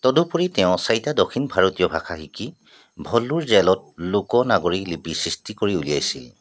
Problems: background sounds at intervals